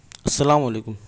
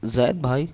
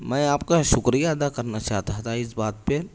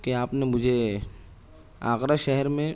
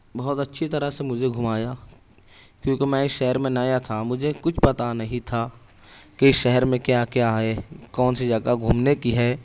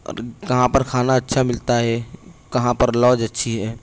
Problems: none marked